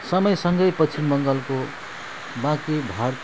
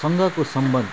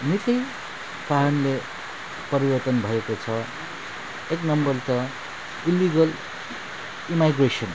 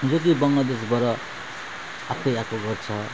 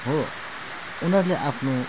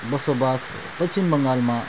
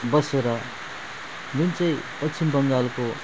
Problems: background sounds at intervals